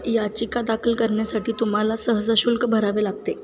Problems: constant background noise